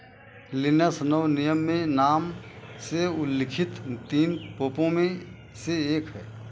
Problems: constant background noise